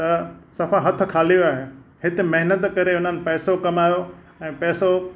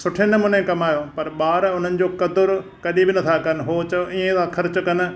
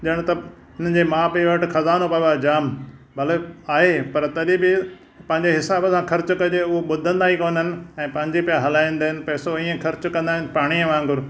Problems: none marked